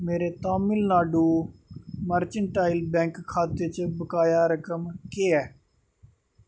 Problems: none marked